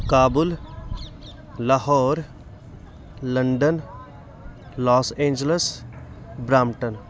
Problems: continuous background conversations